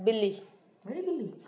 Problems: constant background noise, echo